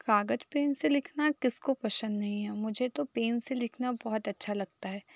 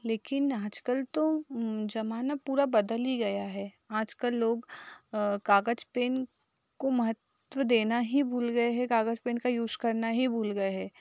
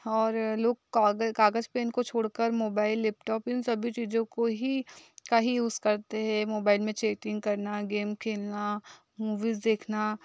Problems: background sounds at intervals